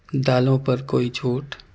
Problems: constant background noise